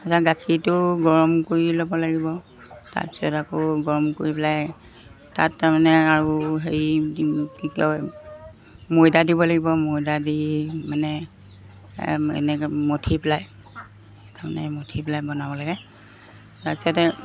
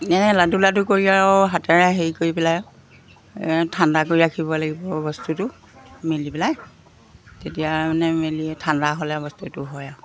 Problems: background sounds at intervals